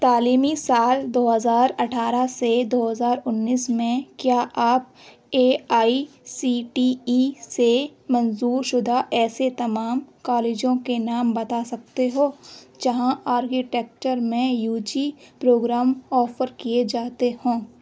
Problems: constant background noise